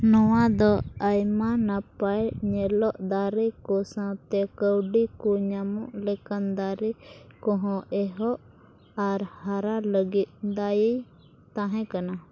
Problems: none marked